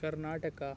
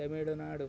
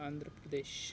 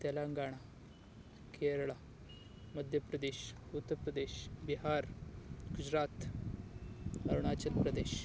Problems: background sounds at intervals